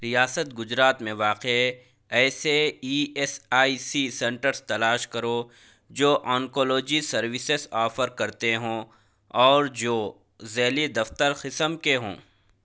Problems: none marked